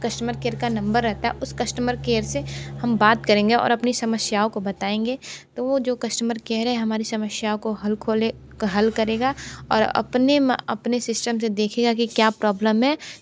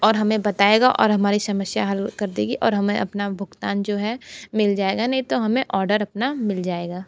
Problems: constant background noise